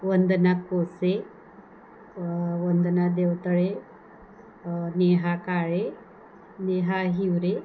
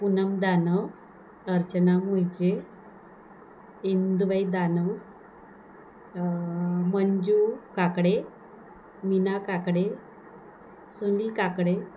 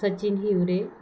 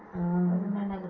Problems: none marked